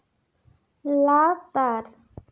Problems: none marked